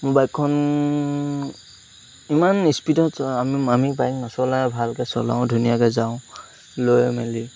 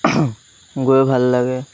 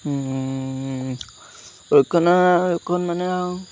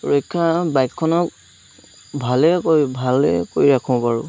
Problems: constant background noise